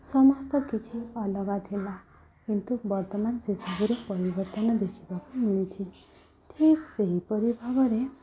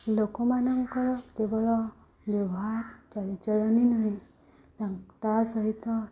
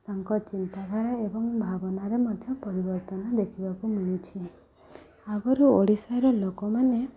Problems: constant background noise, continuous background conversations